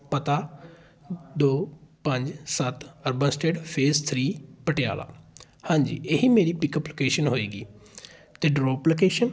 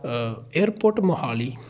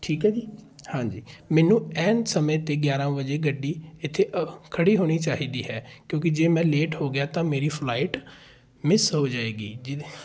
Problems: continuous background conversations